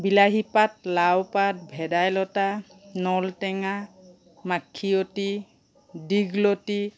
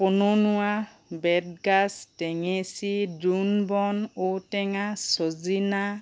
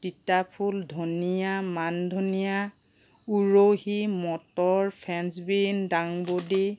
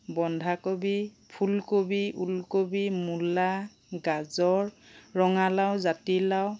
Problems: background sounds at intervals